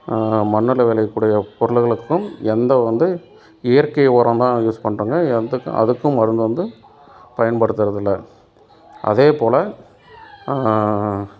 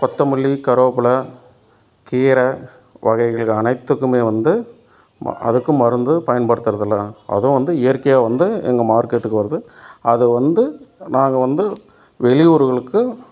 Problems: background sounds at intervals